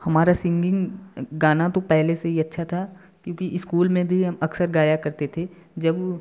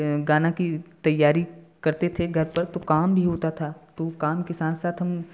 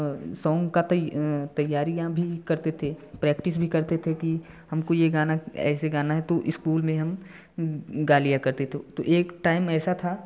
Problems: background sounds at intervals